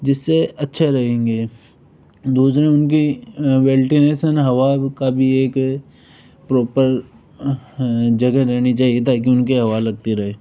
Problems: background sounds at intervals